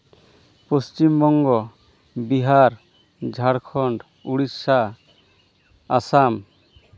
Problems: none marked